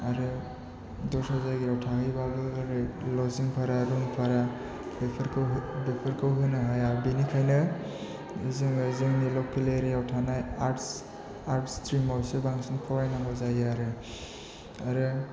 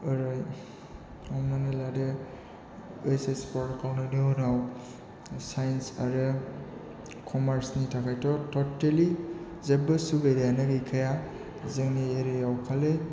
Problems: constant background noise